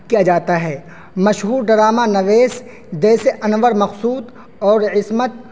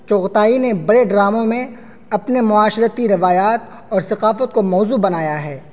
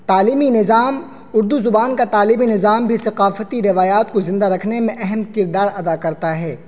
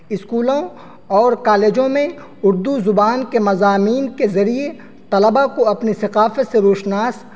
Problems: constant background noise